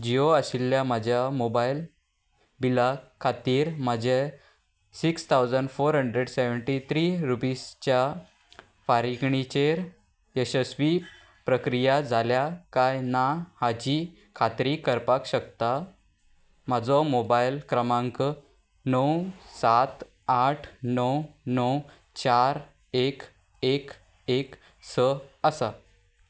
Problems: none marked